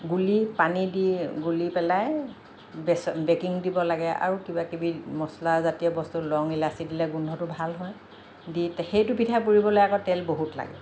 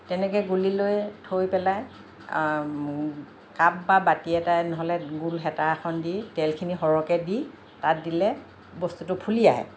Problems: none marked